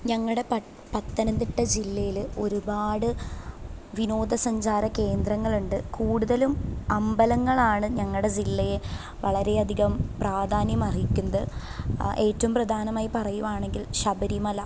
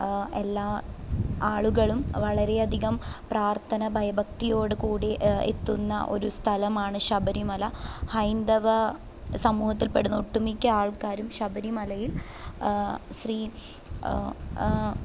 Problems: low volume